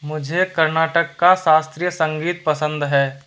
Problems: constant background noise